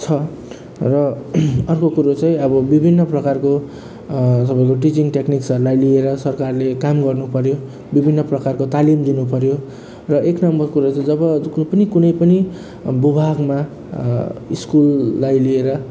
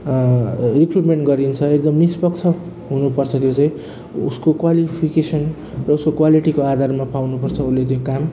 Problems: none marked